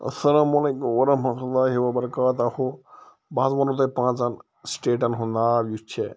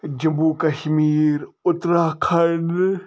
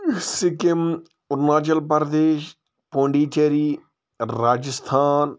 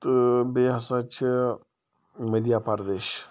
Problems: none marked